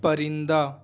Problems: none marked